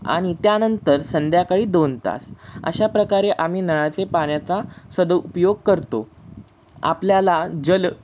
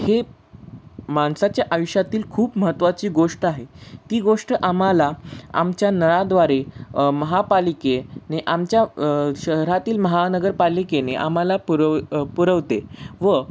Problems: constant background noise